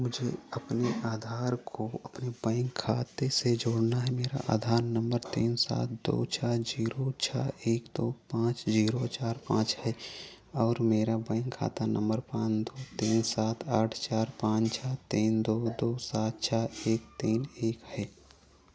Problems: none marked